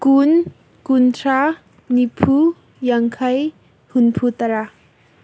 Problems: none marked